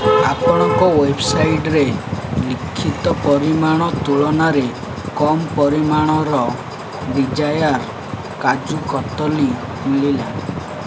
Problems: constant background noise